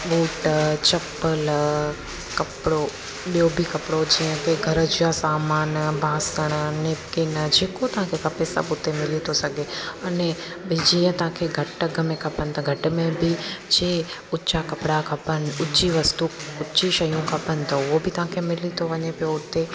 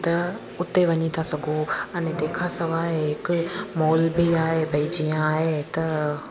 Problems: constant background noise